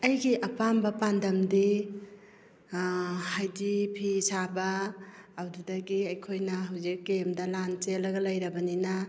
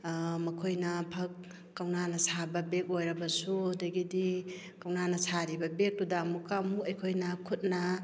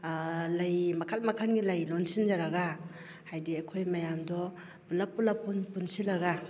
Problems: none marked